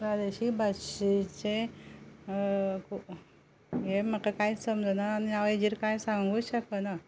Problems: low volume